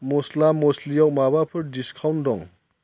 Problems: constant background noise